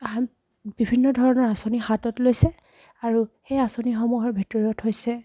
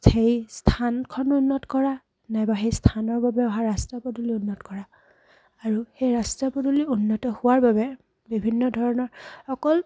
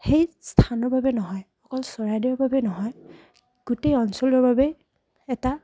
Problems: none marked